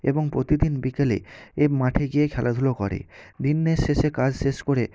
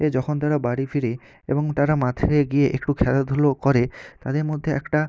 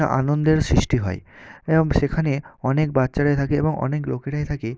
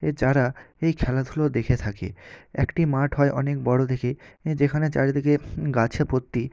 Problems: none marked